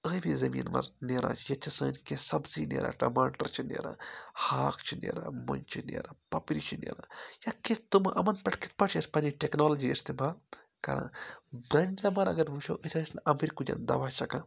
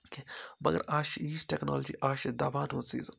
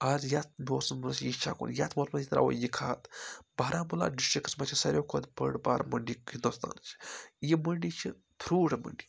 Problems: none marked